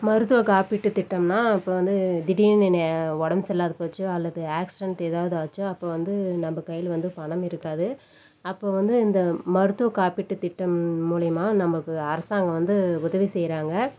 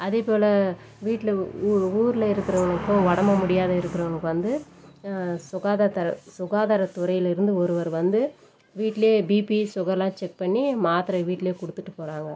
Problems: none marked